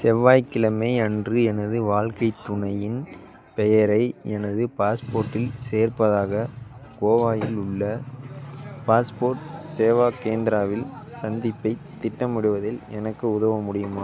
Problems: background sounds at intervals